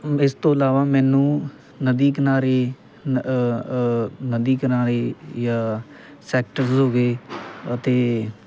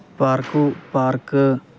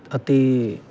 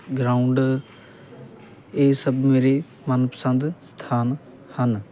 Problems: constant background noise